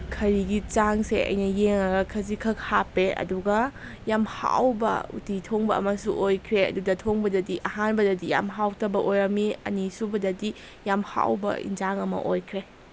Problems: constant background noise